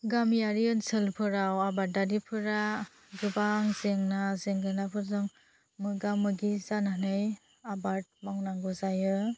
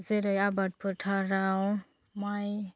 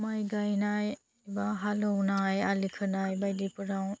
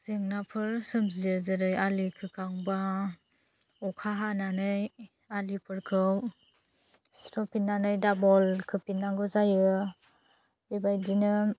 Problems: low volume